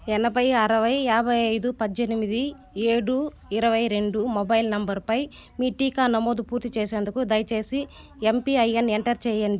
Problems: constant background noise, continuous background conversations